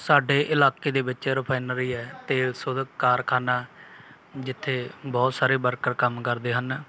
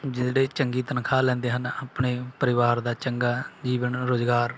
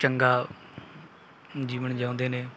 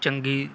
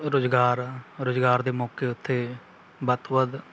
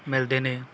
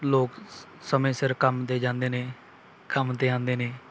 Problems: background sounds at intervals, background conversations at intervals